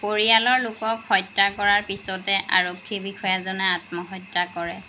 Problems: none marked